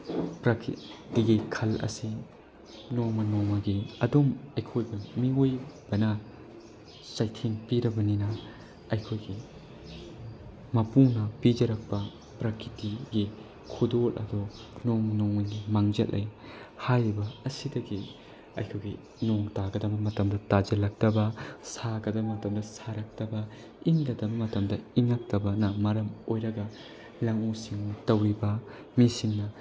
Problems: constant background noise, low volume